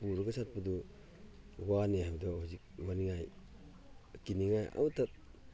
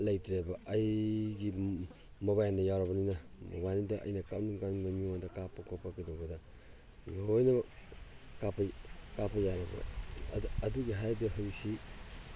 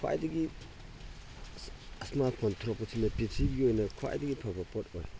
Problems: background sounds at intervals